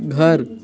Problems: constant background noise